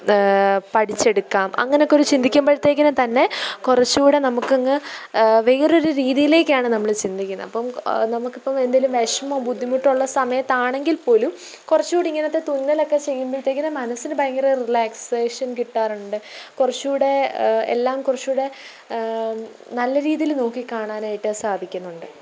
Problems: low volume